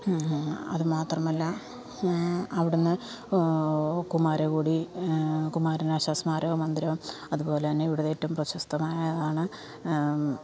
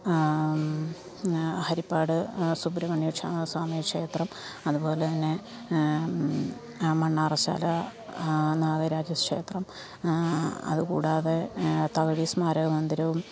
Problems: background sounds at intervals, background conversations at intervals, low volume